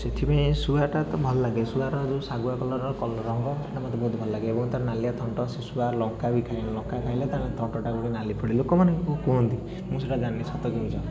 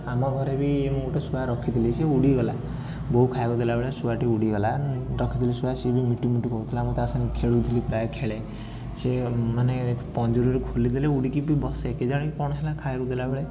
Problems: continuous background conversations